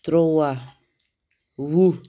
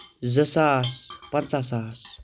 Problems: background sounds at intervals